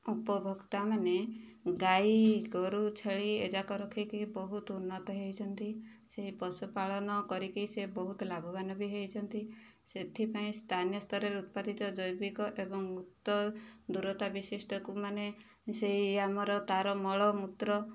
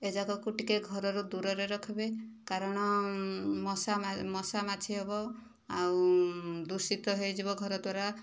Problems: low volume